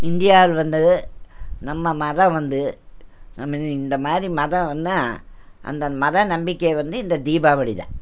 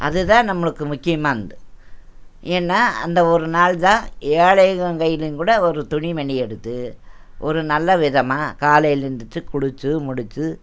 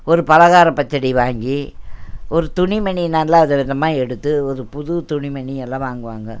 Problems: none marked